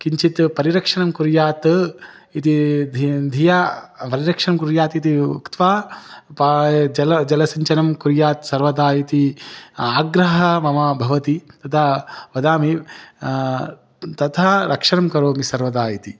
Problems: none marked